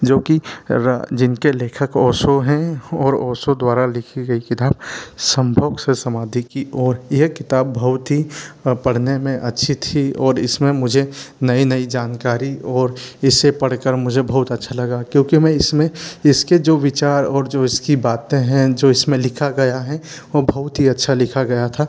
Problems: none marked